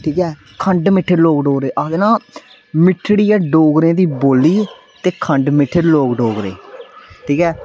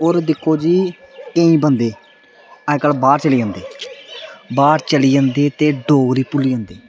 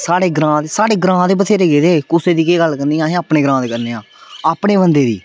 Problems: none marked